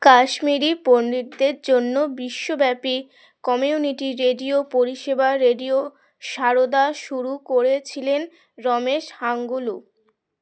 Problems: background sounds at intervals